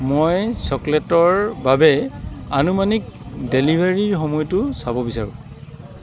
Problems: none marked